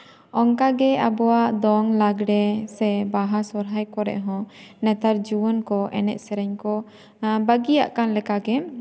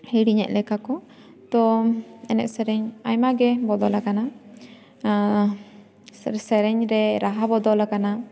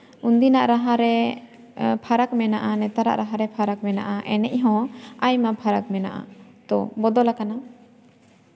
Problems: constant background noise, echo